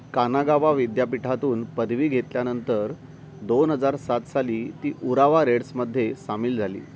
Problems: constant background noise